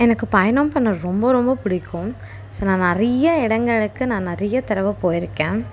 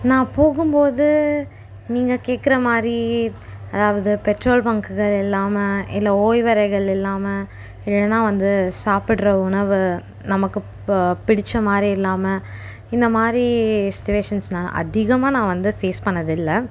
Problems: none marked